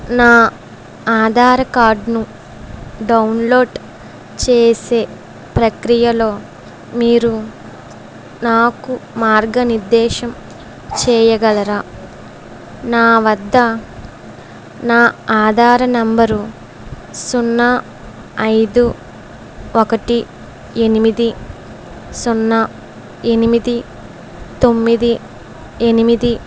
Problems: none marked